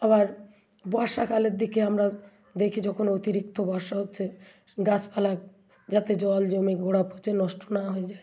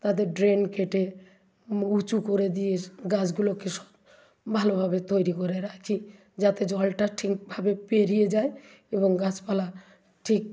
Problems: continuous background conversations